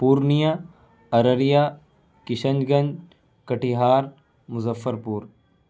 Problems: constant background noise